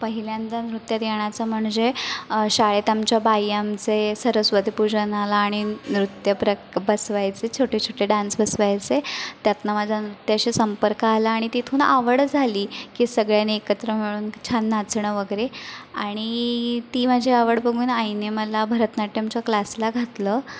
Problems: constant background noise, background conversations at intervals, echo